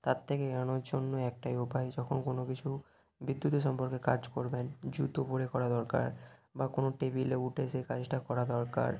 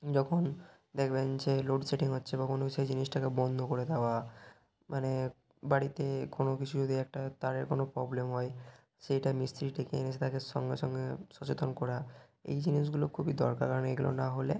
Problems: background sounds at intervals